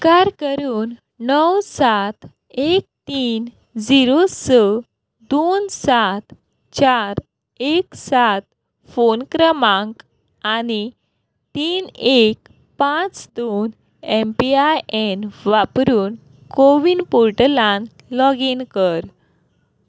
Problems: none marked